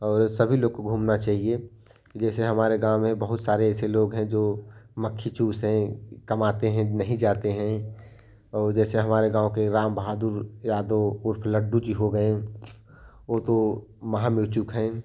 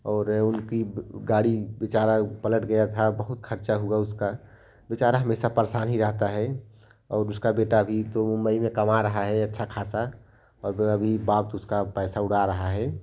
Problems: constant background noise